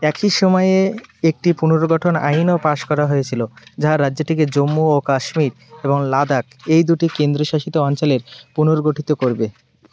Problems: none marked